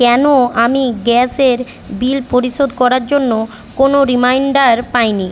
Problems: constant background noise